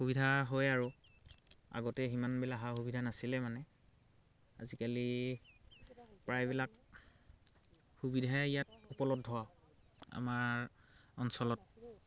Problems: background sounds at intervals, background conversations at intervals